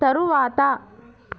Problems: background conversations at intervals